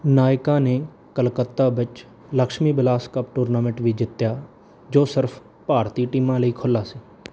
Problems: background sounds at intervals